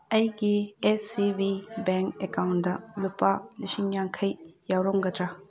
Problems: background conversations at intervals